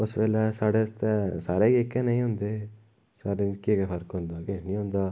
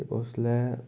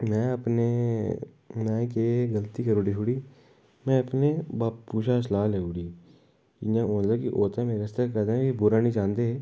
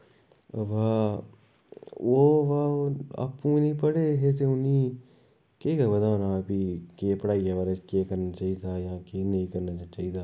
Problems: background sounds at intervals, echo